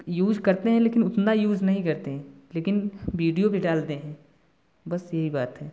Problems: none marked